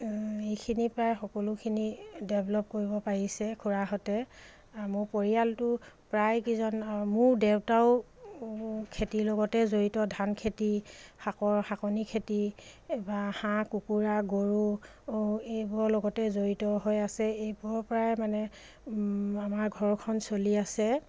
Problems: none marked